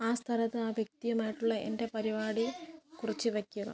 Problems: background conversations at intervals, low volume